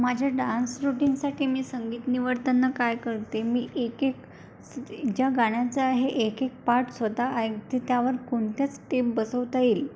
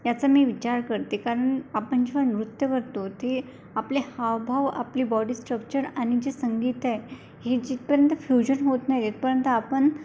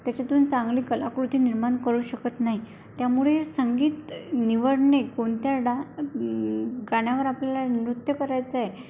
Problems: none marked